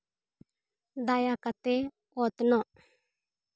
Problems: none marked